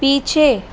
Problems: constant background noise